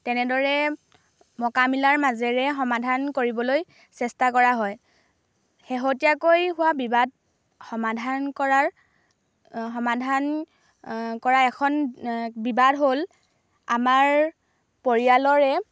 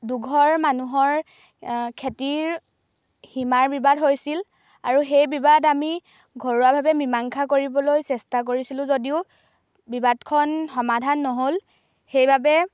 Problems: background sounds at intervals